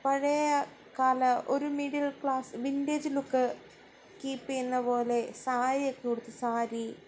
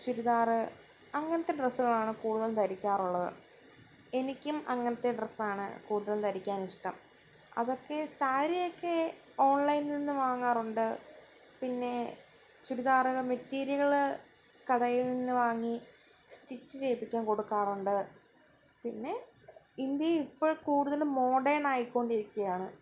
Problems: none marked